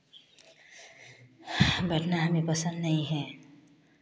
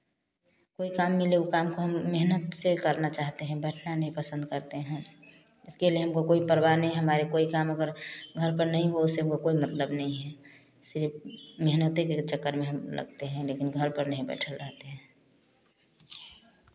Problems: constant background noise